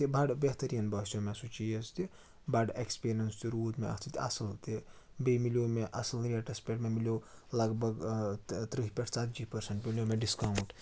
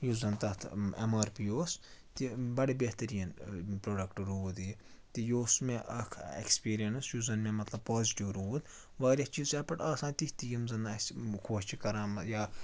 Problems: none marked